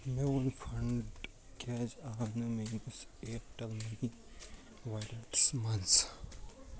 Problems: constant background noise, low volume